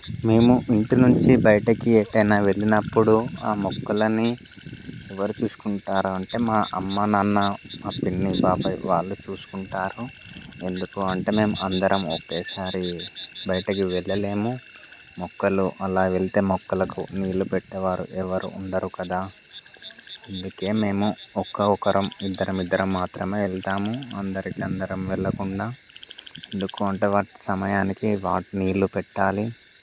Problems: constant background noise